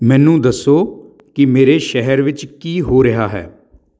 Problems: none marked